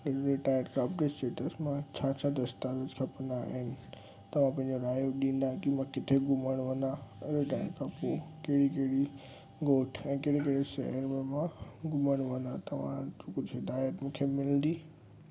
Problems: constant background noise